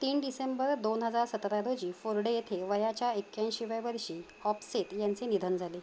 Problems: none marked